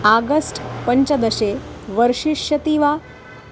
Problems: constant background noise